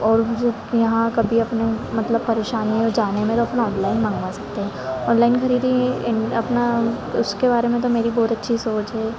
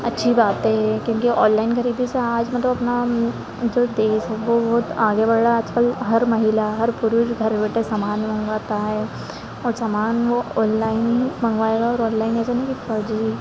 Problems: constant background noise, continuous background conversations